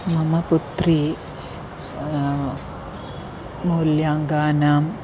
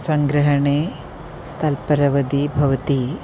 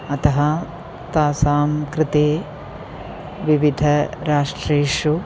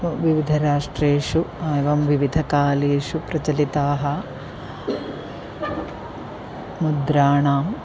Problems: constant background noise, continuous background conversations